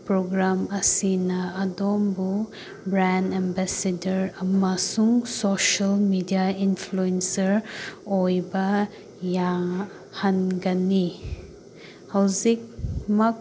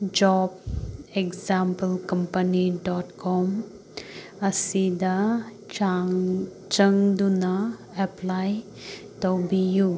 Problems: constant background noise